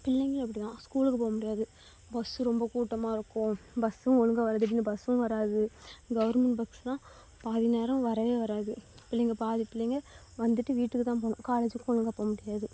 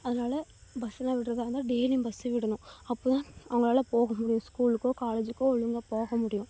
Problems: low volume